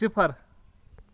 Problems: none marked